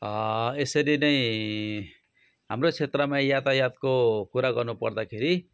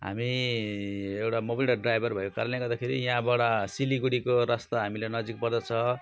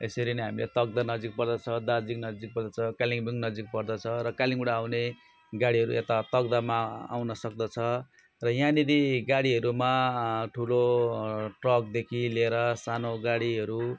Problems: constant background noise